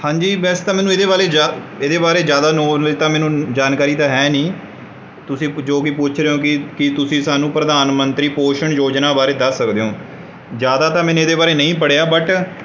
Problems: background sounds at intervals